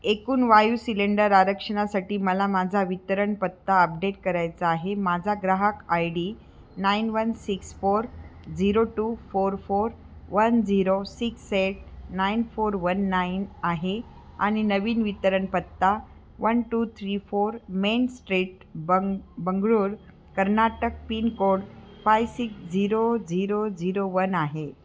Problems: background sounds at intervals